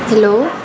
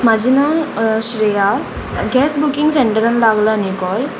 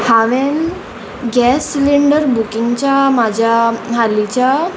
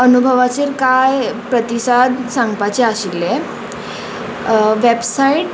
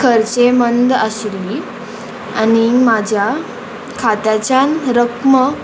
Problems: constant background noise